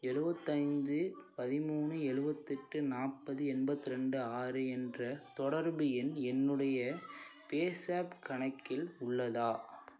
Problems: continuous background conversations